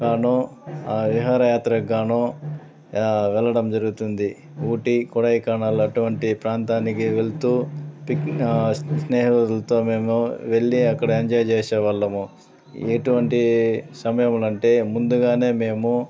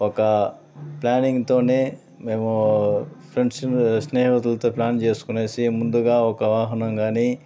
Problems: constant background noise